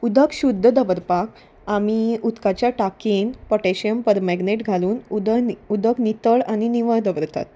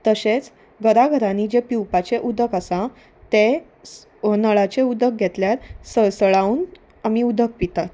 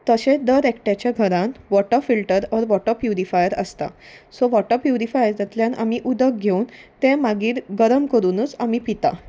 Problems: none marked